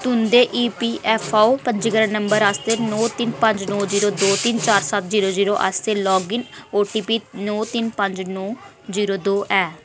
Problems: constant background noise